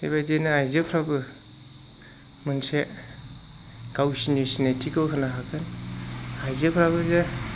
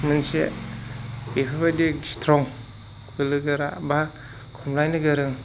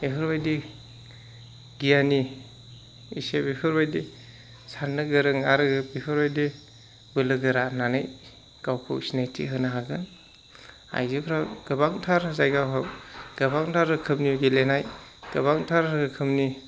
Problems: none marked